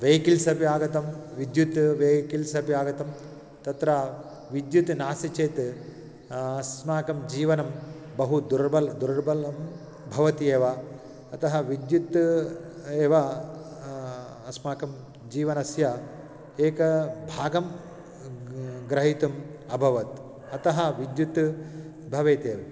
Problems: background sounds at intervals